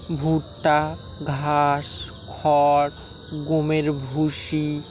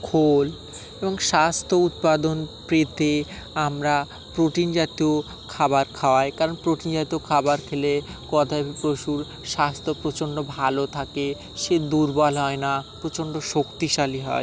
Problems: constant background noise